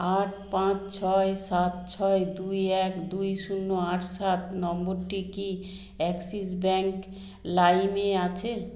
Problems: constant background noise